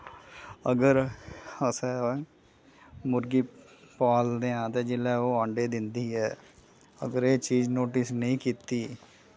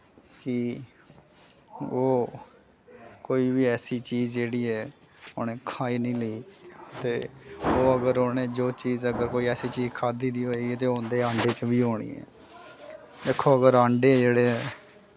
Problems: none marked